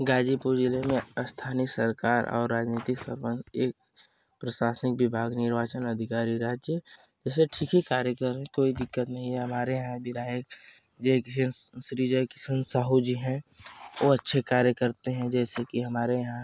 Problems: none marked